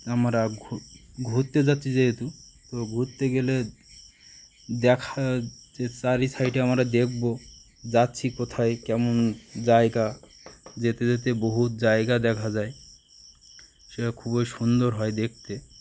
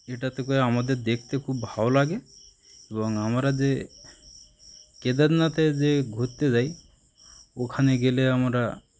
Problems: constant background noise